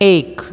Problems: constant background noise